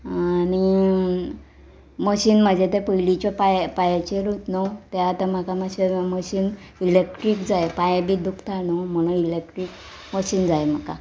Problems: none marked